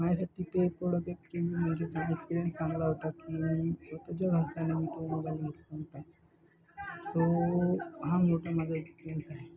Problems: background sounds at intervals, continuous background conversations